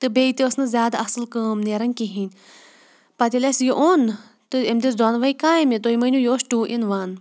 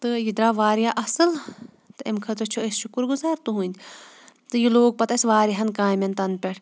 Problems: none marked